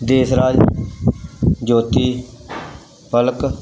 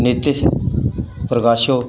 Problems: none marked